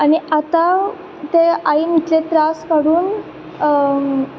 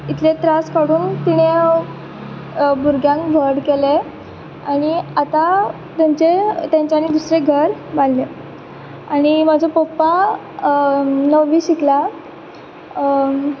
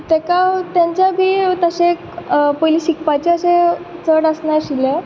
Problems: background sounds at intervals